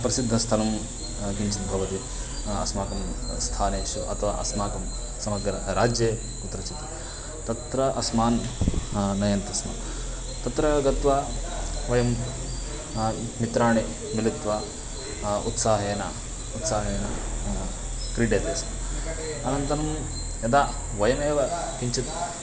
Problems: constant background noise, continuous background conversations